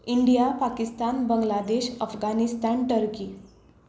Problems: background sounds at intervals